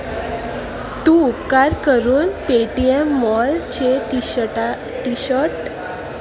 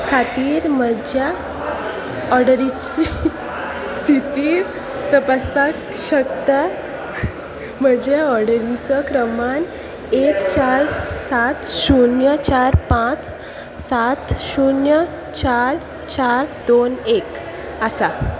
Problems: constant background noise, continuous background conversations